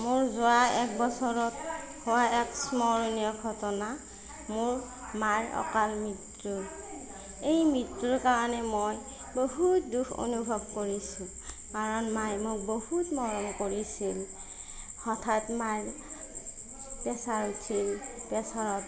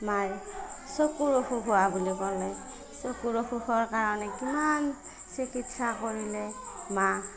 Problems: none marked